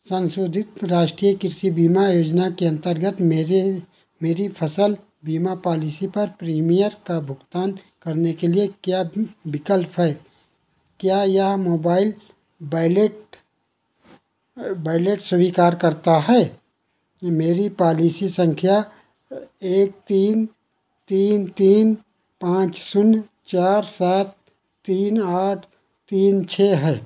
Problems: none marked